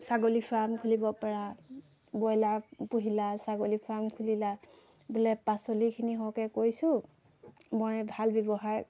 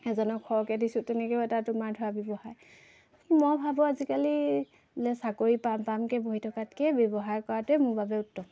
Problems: constant background noise